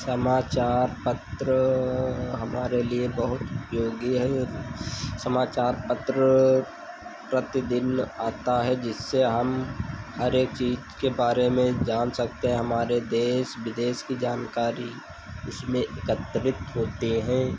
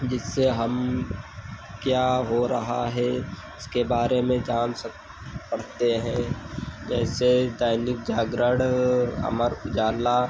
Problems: none marked